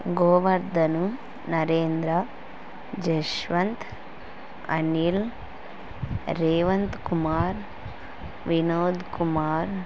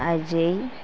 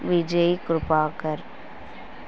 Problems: none marked